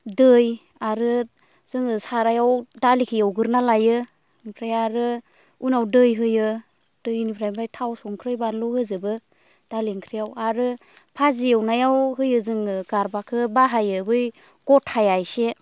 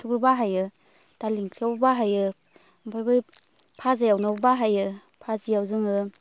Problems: constant background noise